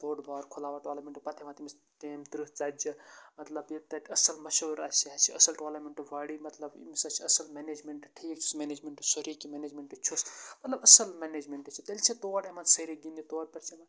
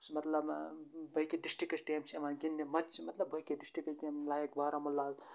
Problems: constant background noise, low volume